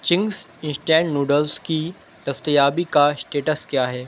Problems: none marked